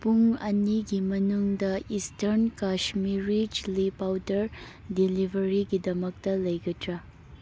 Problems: background sounds at intervals